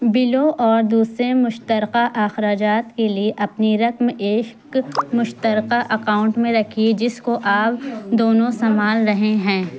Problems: constant background noise